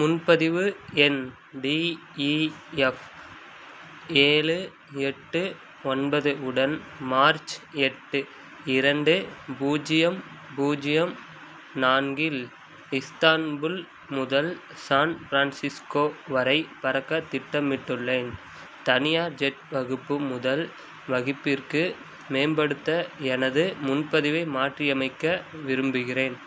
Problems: constant background noise